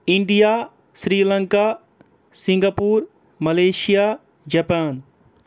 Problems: background sounds at intervals